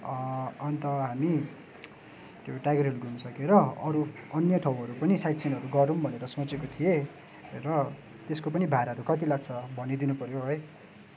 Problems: background sounds at intervals